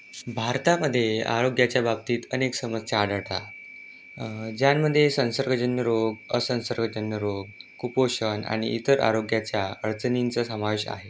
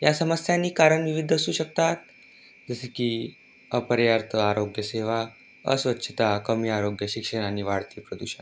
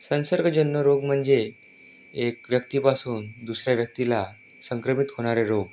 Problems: constant background noise